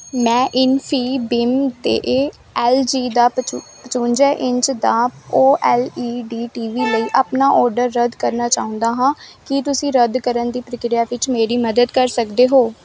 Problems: background sounds at intervals